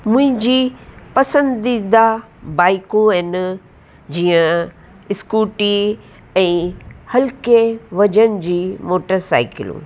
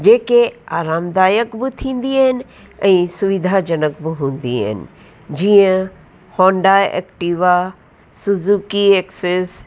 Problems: constant background noise, echo